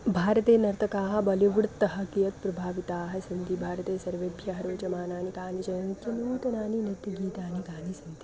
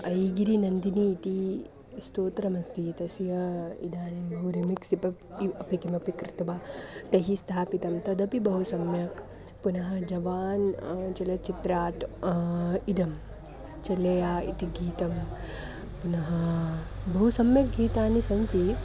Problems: constant background noise, continuous background conversations